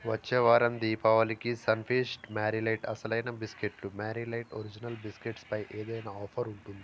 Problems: constant background noise